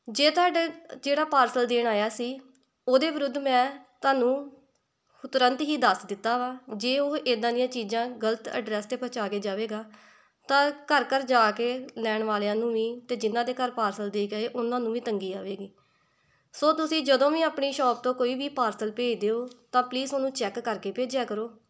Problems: none marked